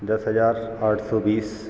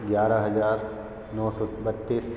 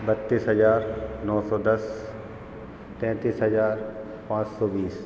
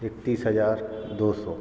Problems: constant background noise